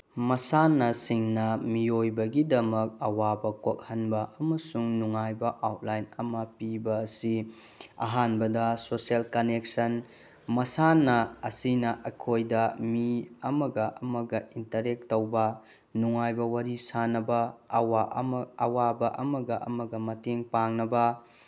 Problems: background sounds at intervals